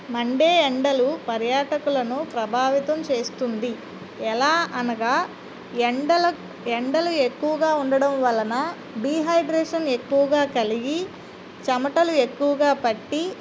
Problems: constant background noise